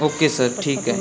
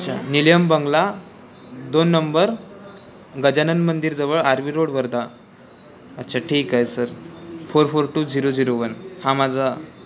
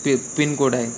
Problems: constant background noise, continuous background conversations